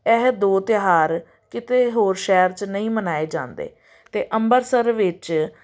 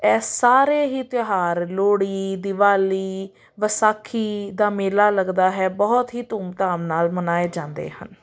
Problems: none marked